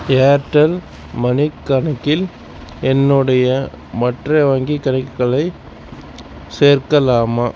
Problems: constant background noise